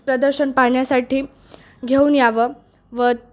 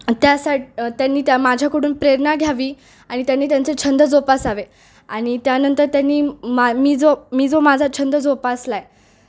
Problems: none marked